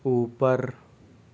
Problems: none marked